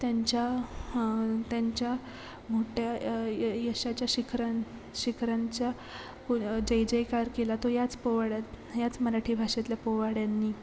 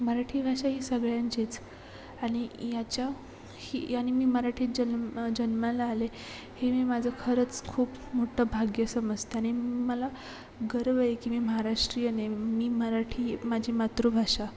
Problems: constant background noise, background conversations at intervals